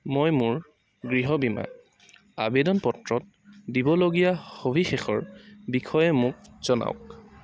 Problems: background sounds at intervals